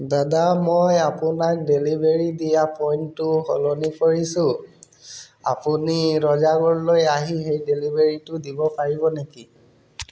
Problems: background sounds at intervals